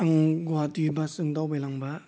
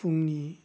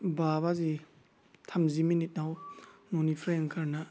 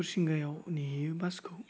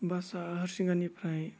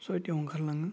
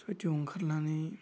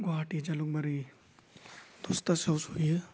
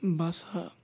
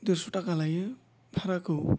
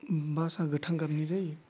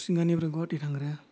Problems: low volume